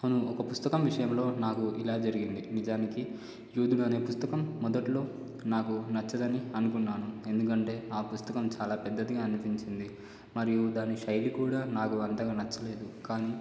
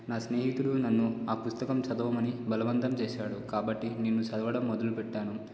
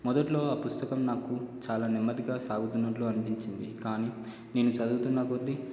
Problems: low volume